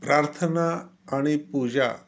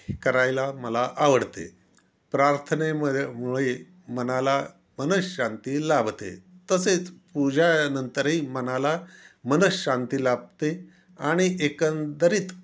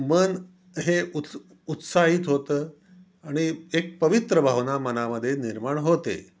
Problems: none marked